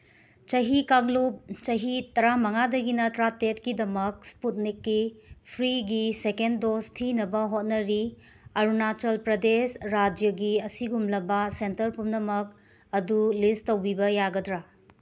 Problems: background sounds at intervals